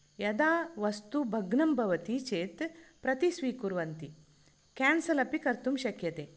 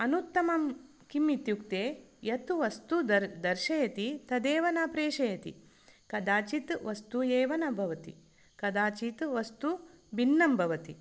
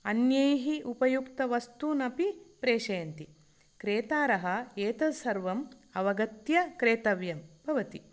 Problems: none marked